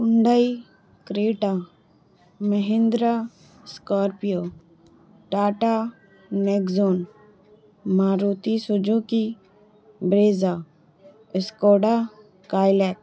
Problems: background sounds at intervals, low volume